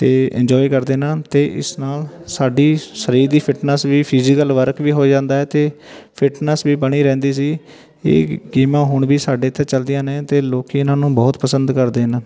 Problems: none marked